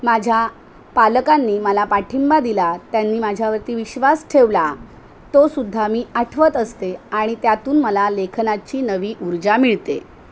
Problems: none marked